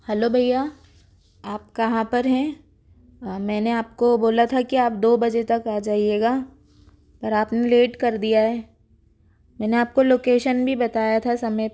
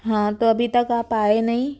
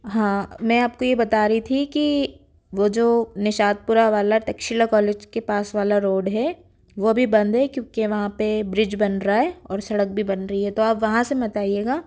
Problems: background sounds at intervals